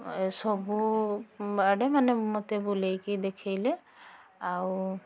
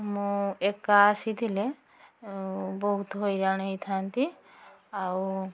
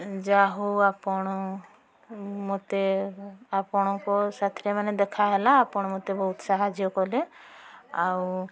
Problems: background sounds at intervals, background conversations at intervals